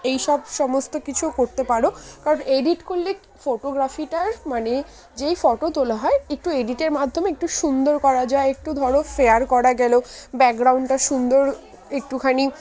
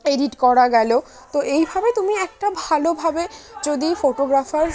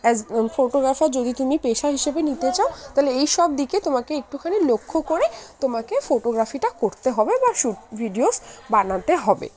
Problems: constant background noise, continuous background conversations